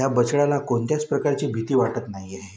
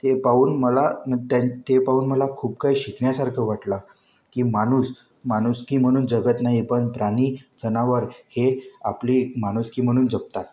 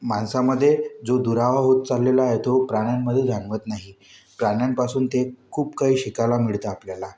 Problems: none marked